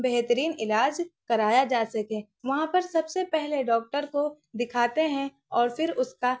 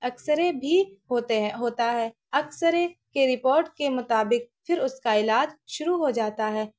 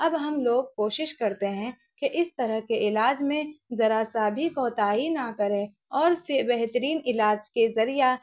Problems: none marked